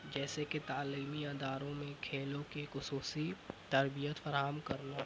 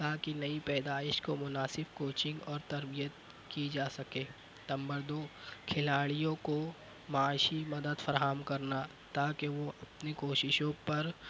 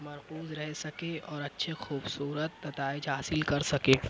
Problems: constant background noise